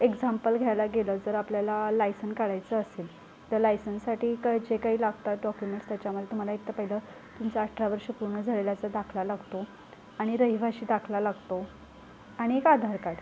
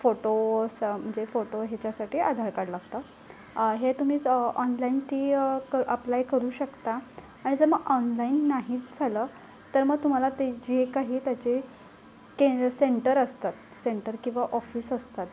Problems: background sounds at intervals, low volume